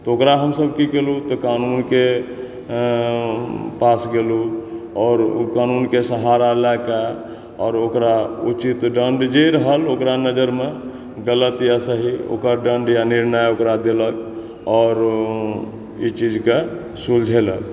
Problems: background sounds at intervals